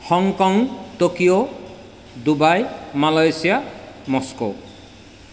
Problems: constant background noise, echo